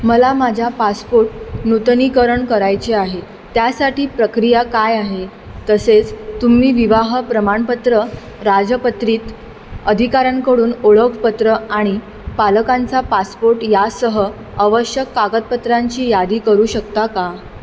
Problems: none marked